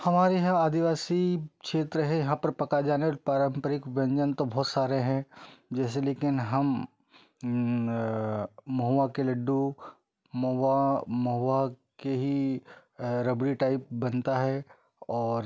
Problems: none marked